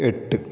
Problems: low volume